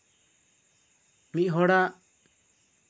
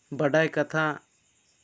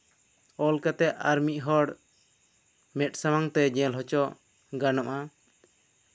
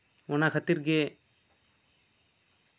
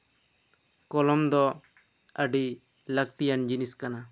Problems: none marked